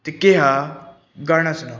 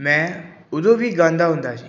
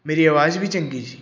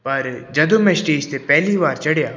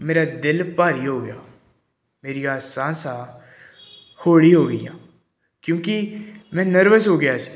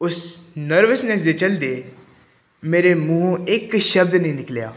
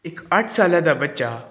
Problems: background sounds at intervals